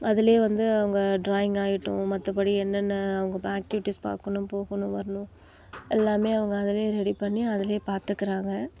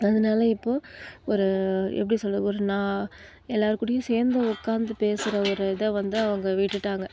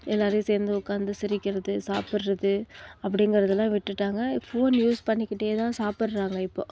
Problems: background sounds at intervals